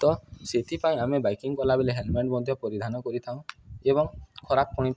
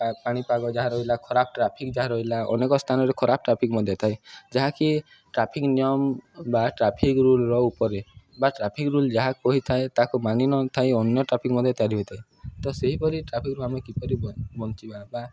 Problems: none marked